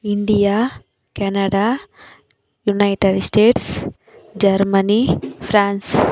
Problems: constant background noise